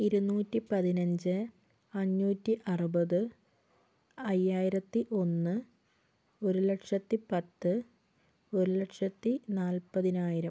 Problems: none marked